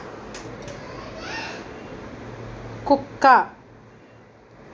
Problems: background conversations at intervals